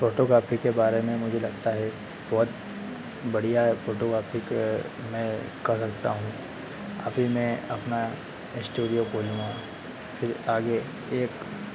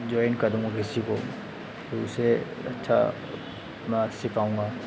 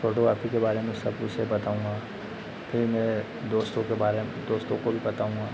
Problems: constant background noise, echo